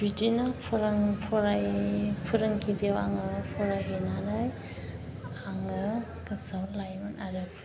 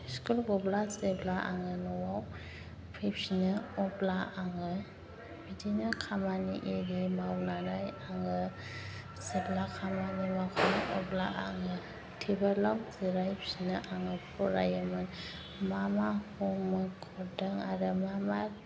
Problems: constant background noise